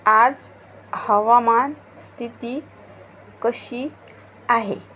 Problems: constant background noise